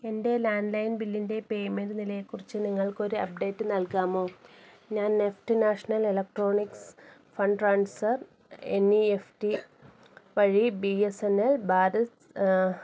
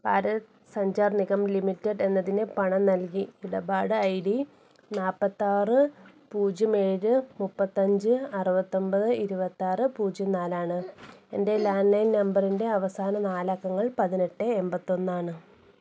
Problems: none marked